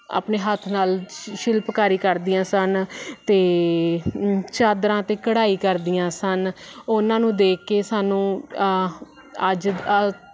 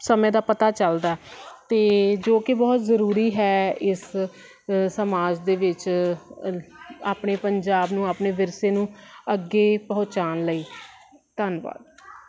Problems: constant background noise